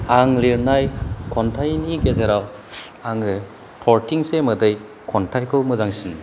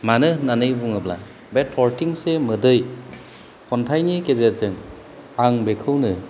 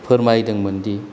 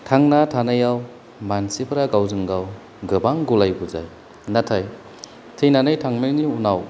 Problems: none marked